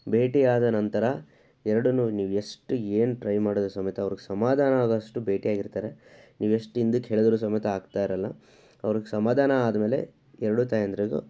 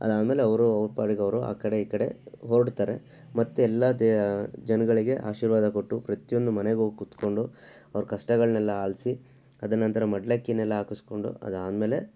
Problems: background sounds at intervals